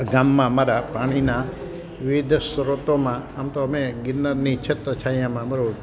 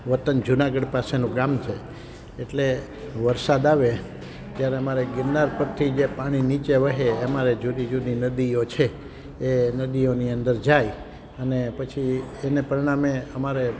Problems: constant background noise